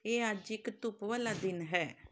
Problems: background sounds at intervals